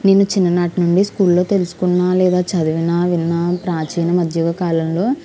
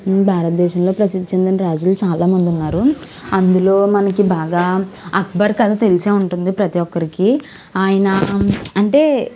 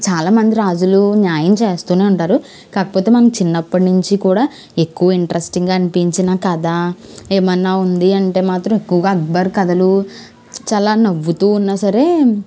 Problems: constant background noise